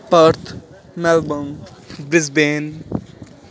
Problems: none marked